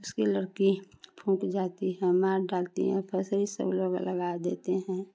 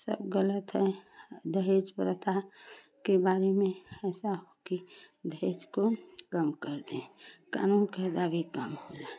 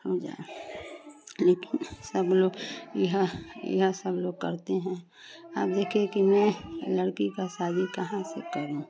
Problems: constant background noise, continuous background conversations